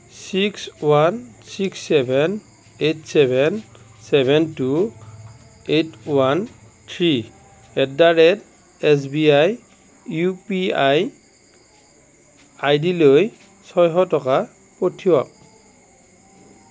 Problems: none marked